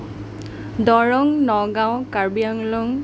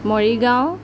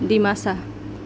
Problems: none marked